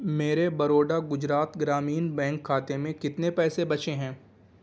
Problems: background sounds at intervals